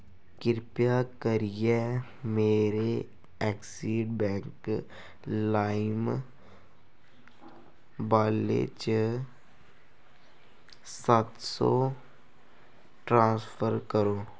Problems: constant background noise